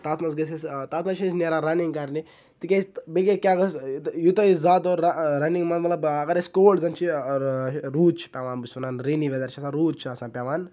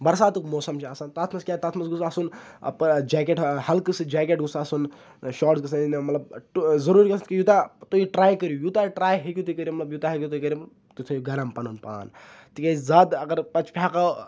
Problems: none marked